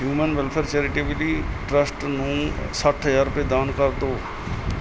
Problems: constant background noise